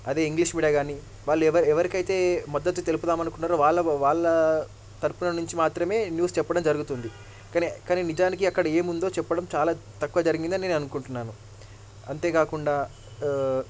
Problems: low volume